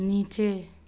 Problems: constant background noise